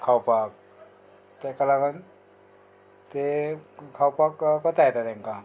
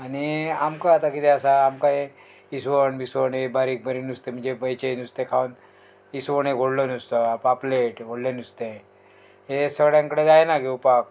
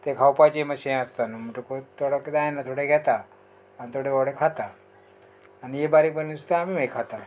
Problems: none marked